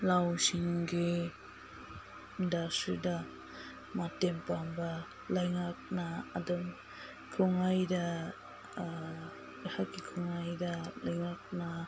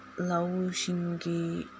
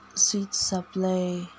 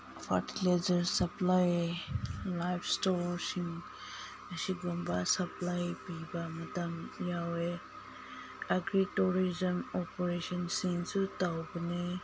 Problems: low volume